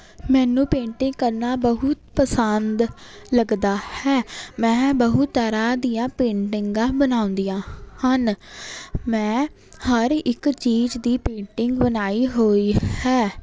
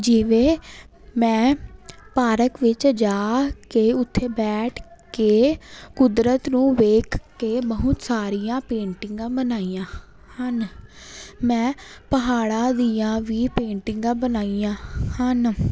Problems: none marked